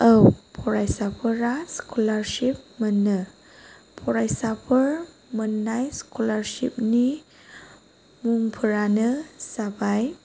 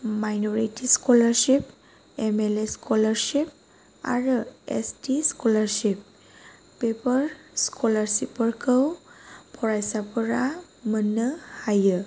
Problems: none marked